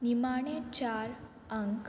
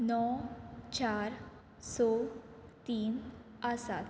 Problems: none marked